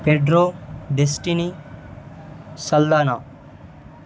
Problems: none marked